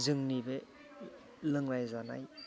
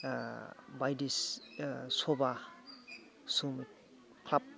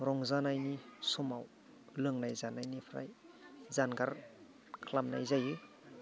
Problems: background sounds at intervals, background conversations at intervals